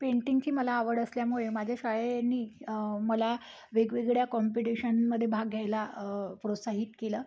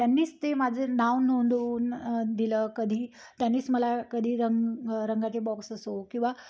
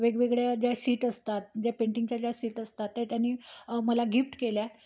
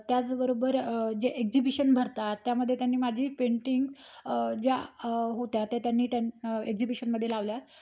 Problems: background sounds at intervals